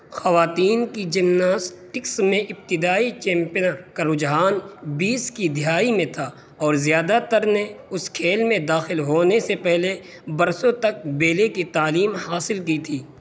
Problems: constant background noise